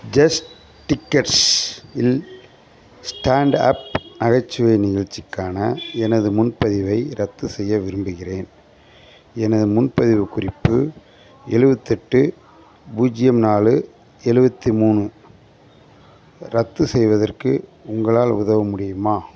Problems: constant background noise, background conversations at intervals